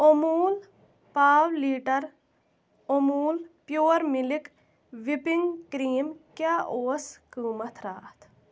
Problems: constant background noise